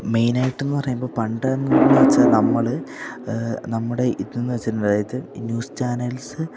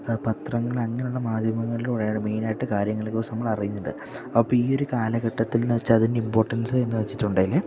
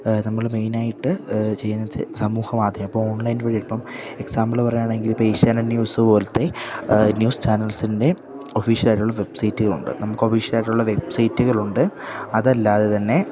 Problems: none marked